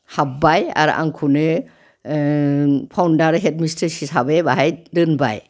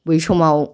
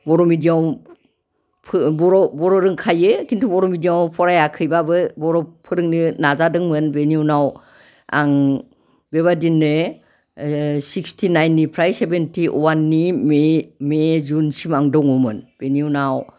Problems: background conversations at intervals